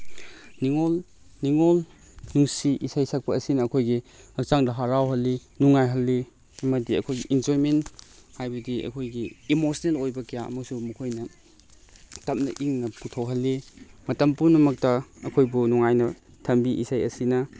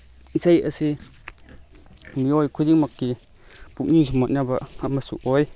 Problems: background sounds at intervals